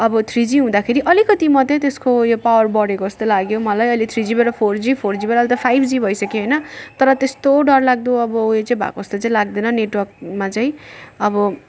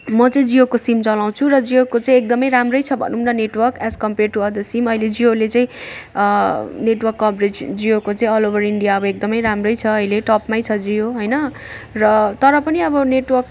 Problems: background sounds at intervals